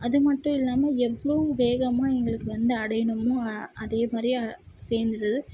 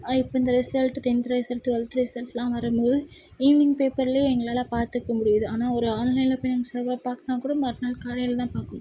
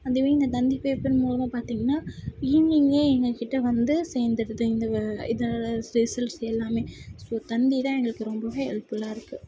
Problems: none marked